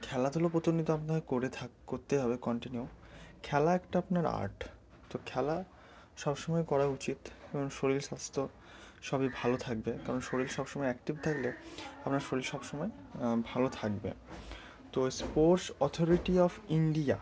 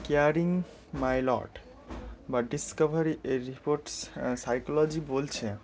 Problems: none marked